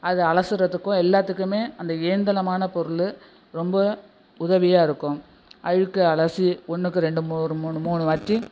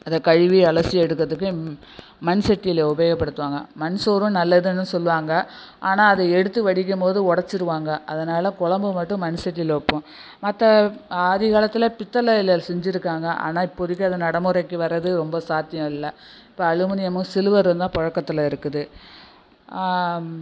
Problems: background sounds at intervals